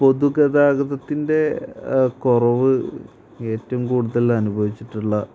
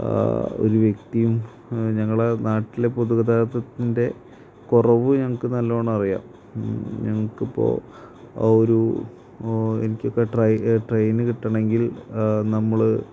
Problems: constant background noise, low volume